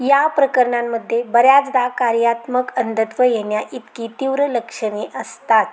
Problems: none marked